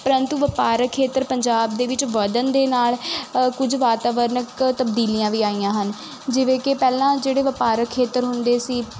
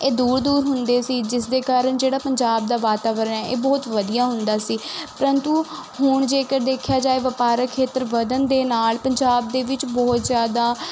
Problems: constant background noise